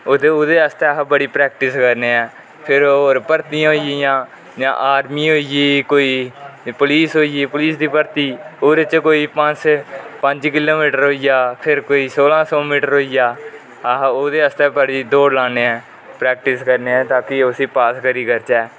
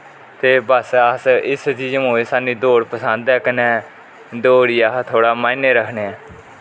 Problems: constant background noise